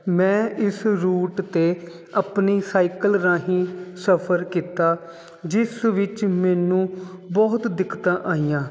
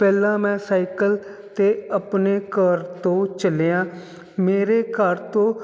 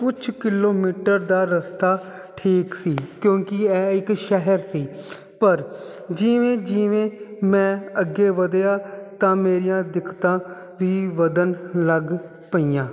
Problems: none marked